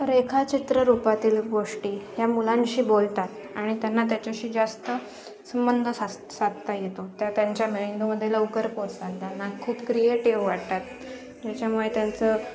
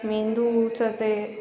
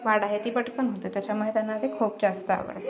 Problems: constant background noise, continuous background conversations